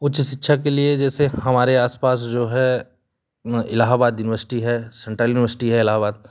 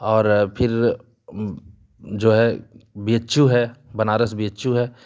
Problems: constant background noise